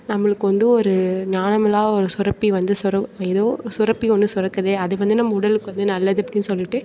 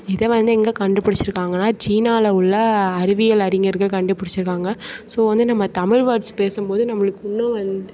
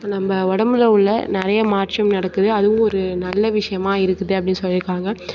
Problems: none marked